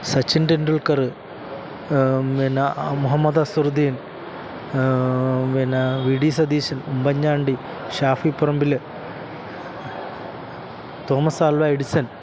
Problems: constant background noise